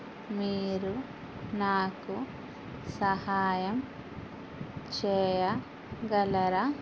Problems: constant background noise